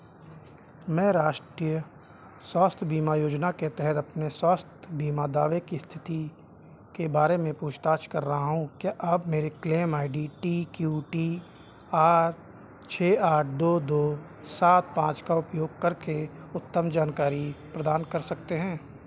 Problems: none marked